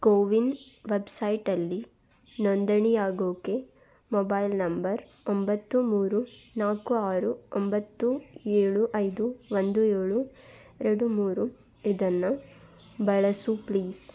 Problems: none marked